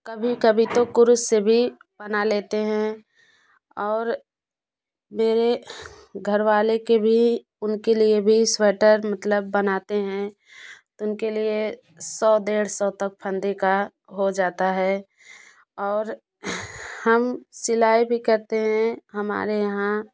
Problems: none marked